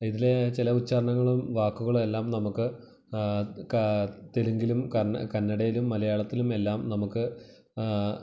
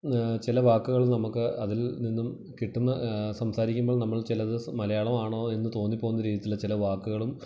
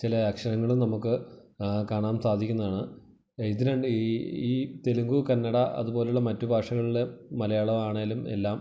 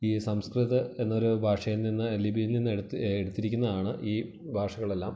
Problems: low volume